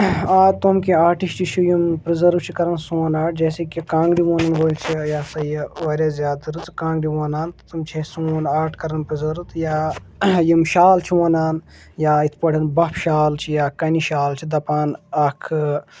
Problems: background conversations at intervals